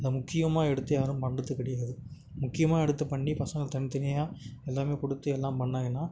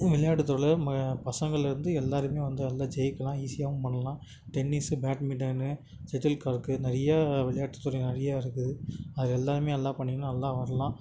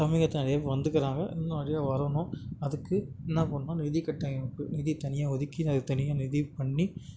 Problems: constant background noise, low volume